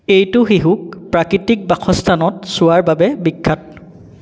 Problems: echo